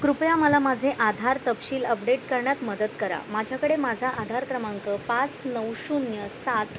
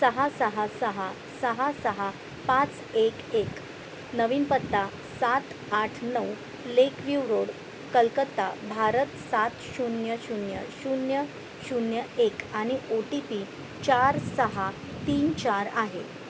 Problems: none marked